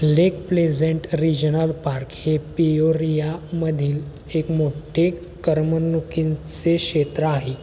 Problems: constant background noise